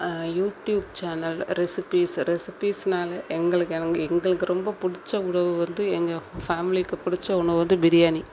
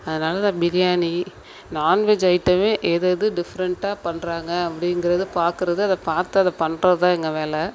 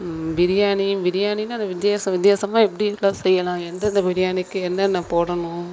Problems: background sounds at intervals